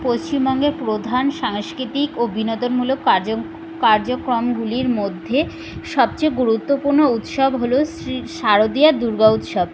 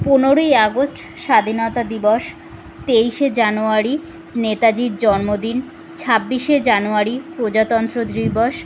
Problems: constant background noise, background conversations at intervals